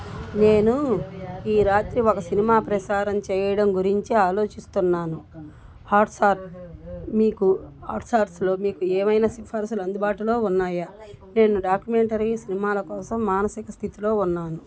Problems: background conversations at intervals